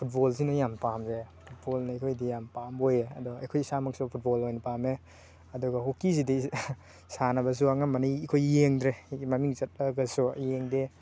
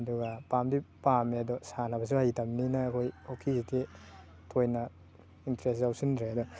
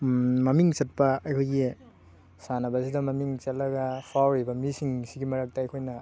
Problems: constant background noise, background conversations at intervals